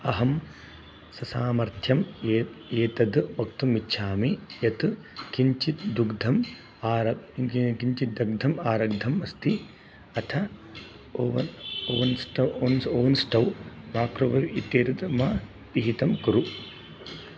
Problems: background sounds at intervals